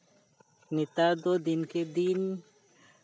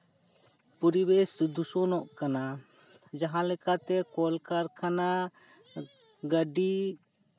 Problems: constant background noise, background conversations at intervals